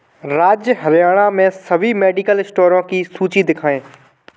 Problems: none marked